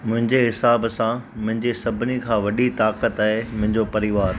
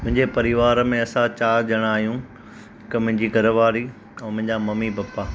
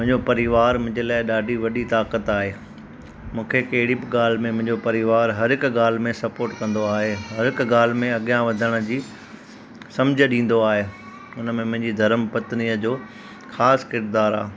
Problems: constant background noise